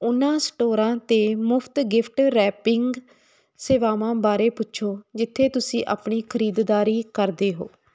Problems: none marked